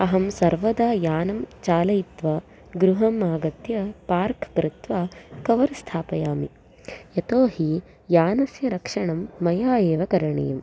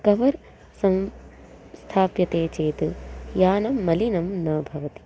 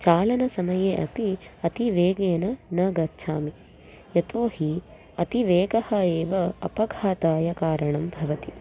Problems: constant background noise